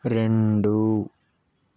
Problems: none marked